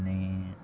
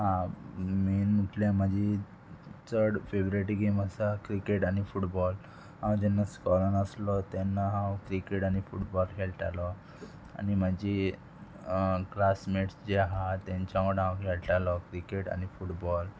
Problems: constant background noise, background conversations at intervals